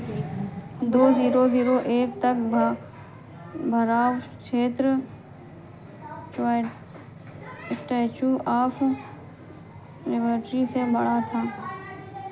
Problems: none marked